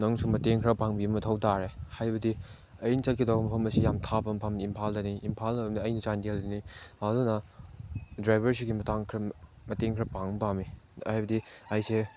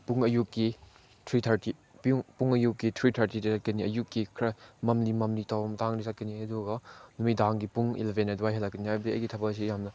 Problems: background sounds at intervals